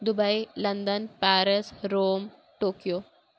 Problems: constant background noise